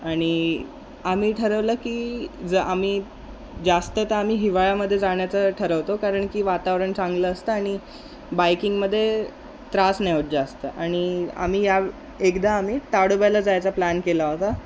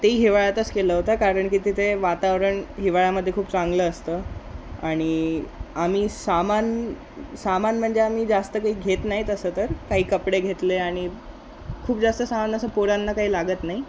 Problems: constant background noise